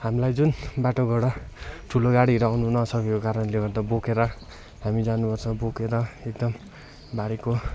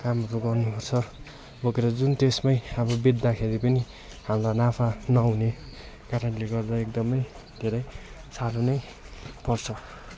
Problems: continuous background conversations